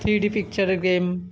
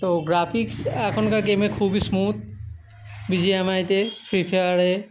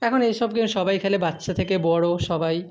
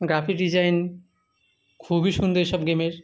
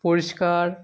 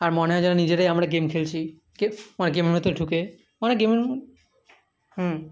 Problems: constant background noise